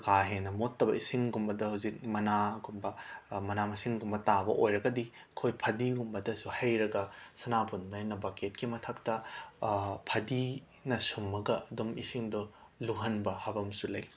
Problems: none marked